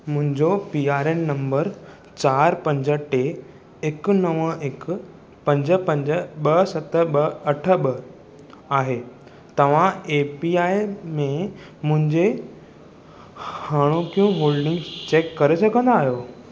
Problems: constant background noise